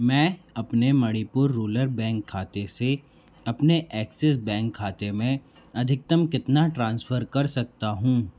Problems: constant background noise